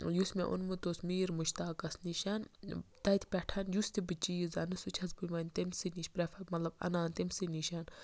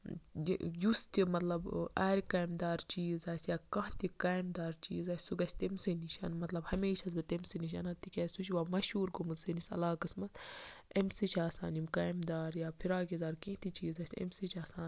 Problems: background sounds at intervals, background conversations at intervals